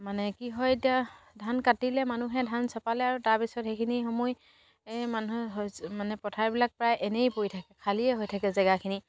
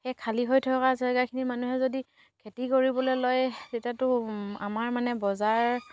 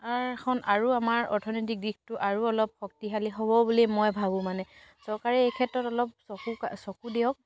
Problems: none marked